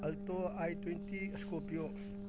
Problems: constant background noise